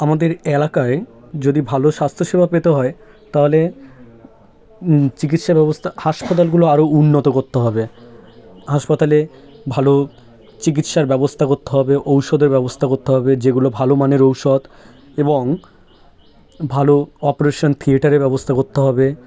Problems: constant background noise